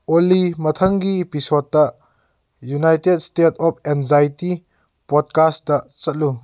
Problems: none marked